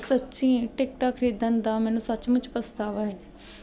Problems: background sounds at intervals